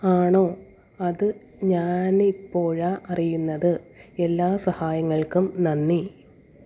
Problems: none marked